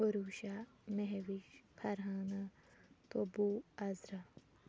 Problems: constant background noise